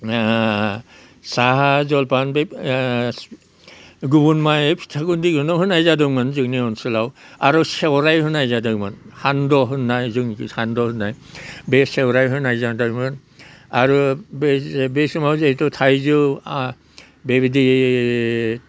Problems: none marked